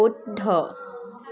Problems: none marked